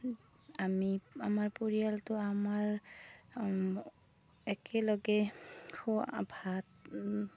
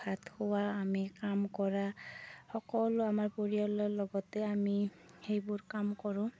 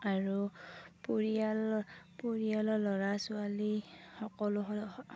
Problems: low volume